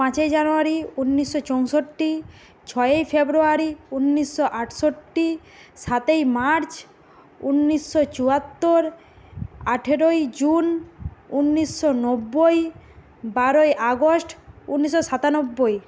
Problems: constant background noise